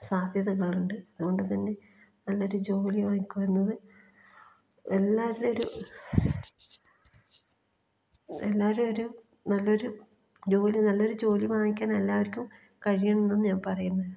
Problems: low volume